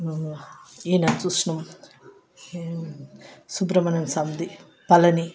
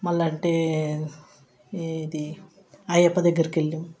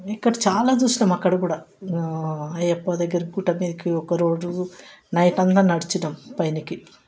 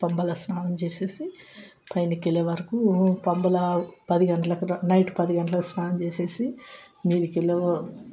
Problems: background sounds at intervals, background conversations at intervals